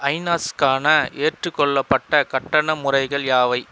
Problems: constant background noise